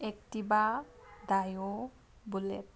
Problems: none marked